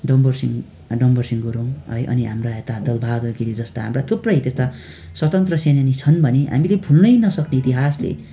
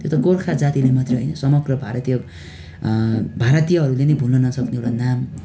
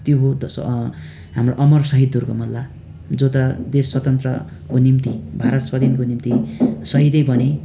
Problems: constant background noise